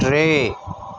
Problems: constant background noise, echo